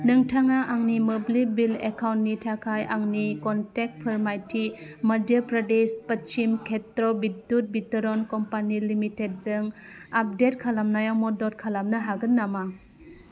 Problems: constant background noise